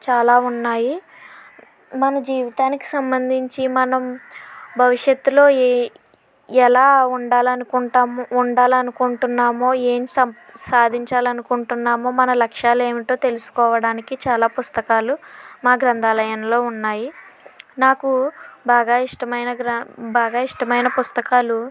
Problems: background conversations at intervals